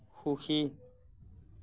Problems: none marked